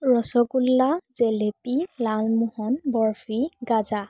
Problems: constant background noise